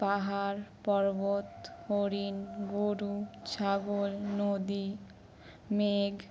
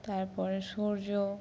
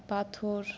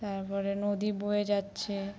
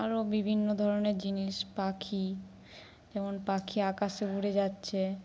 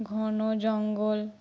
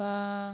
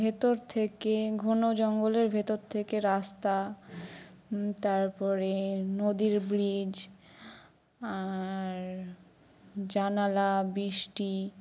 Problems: background sounds at intervals